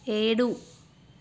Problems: constant background noise